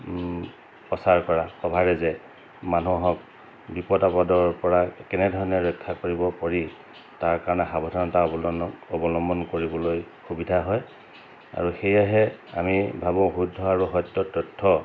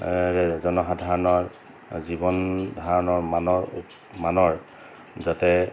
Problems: constant background noise